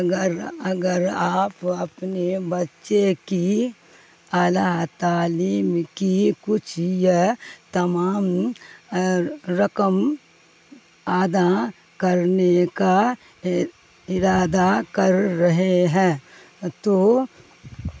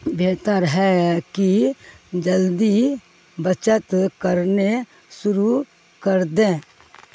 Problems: constant background noise